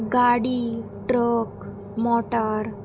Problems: constant background noise